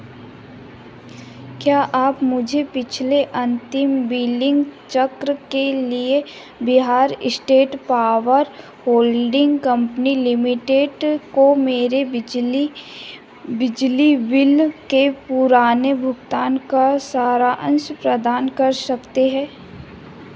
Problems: none marked